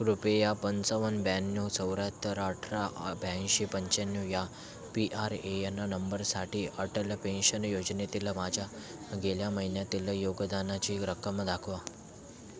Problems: none marked